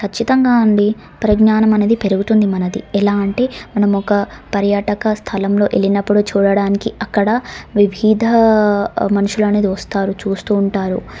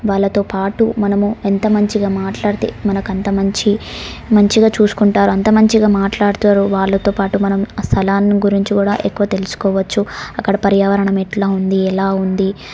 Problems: background sounds at intervals